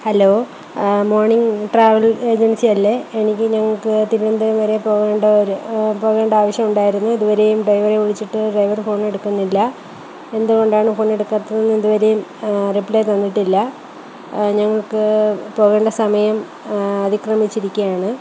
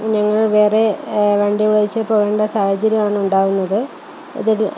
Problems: constant background noise, low volume